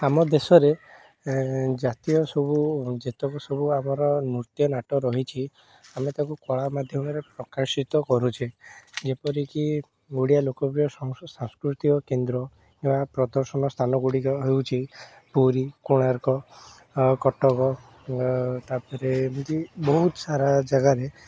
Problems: constant background noise